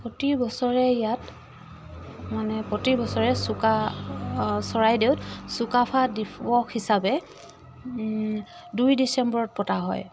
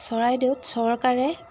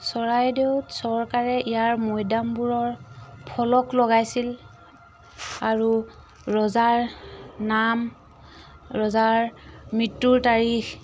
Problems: none marked